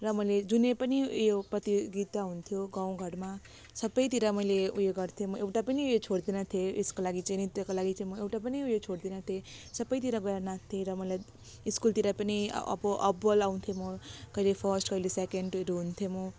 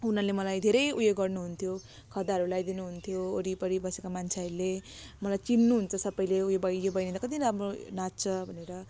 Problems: constant background noise